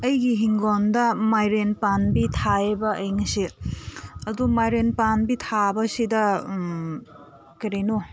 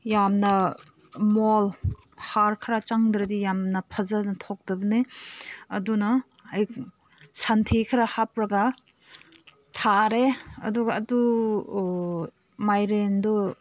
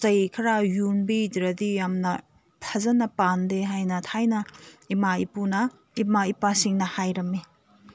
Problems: none marked